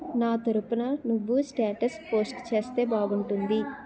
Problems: continuous background conversations